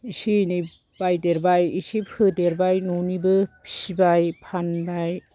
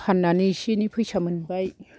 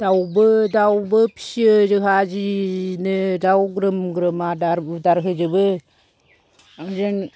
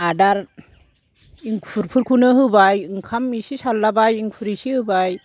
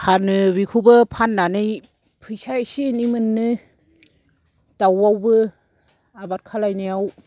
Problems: low volume